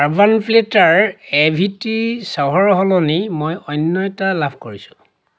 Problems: none marked